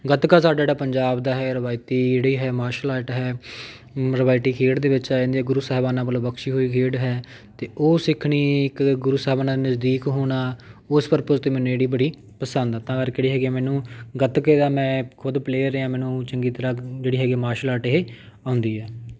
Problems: none marked